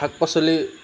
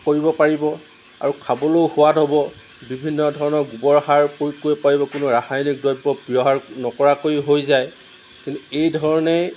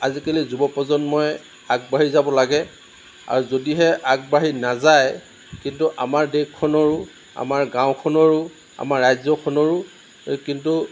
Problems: none marked